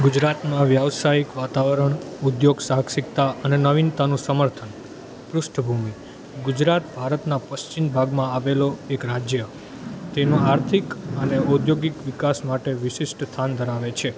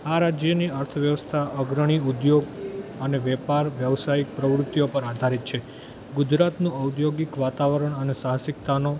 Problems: constant background noise